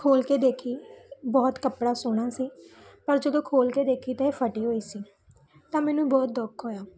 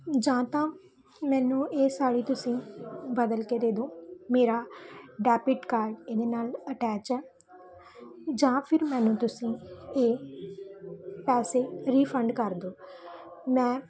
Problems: background conversations at intervals